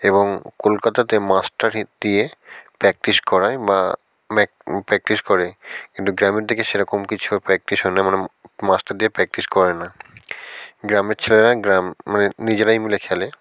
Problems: constant background noise